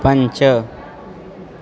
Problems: constant background noise